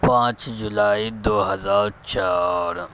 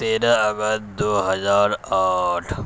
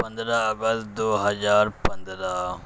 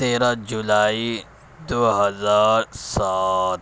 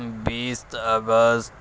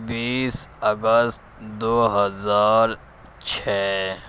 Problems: constant background noise, low volume